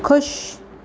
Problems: none marked